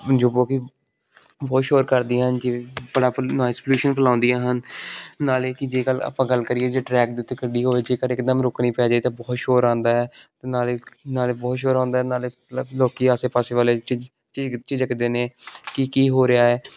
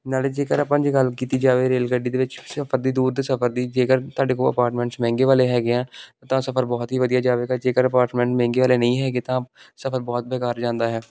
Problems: none marked